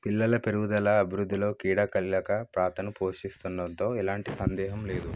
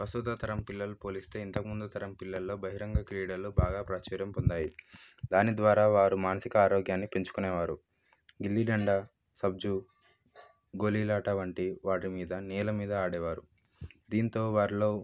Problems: low volume